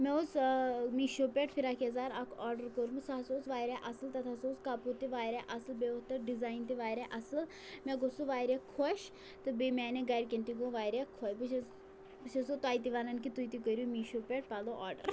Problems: constant background noise, low volume